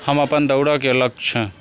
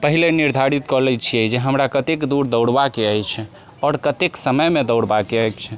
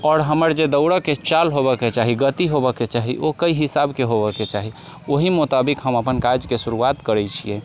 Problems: background sounds at intervals